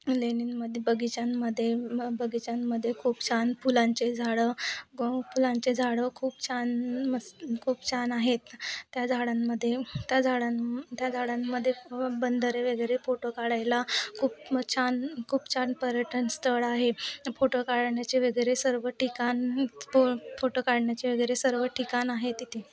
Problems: constant background noise, continuous background conversations